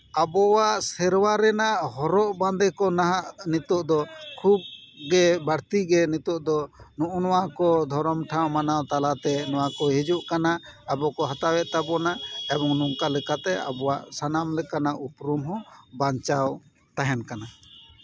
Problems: none marked